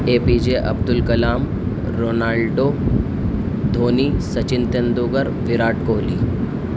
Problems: constant background noise